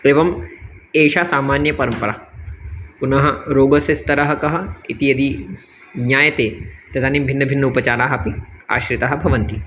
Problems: constant background noise, background conversations at intervals